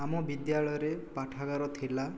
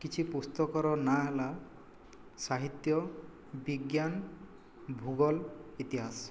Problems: low volume